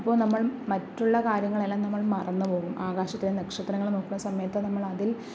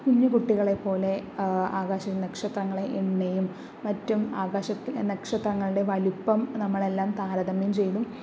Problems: background sounds at intervals